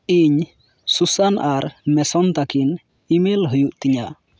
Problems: none marked